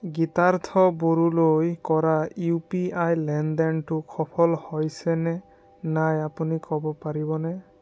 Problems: none marked